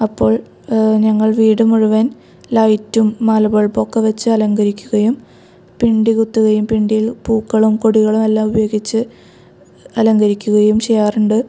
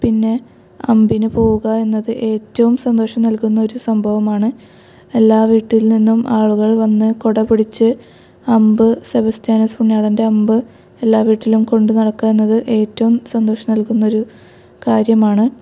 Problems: none marked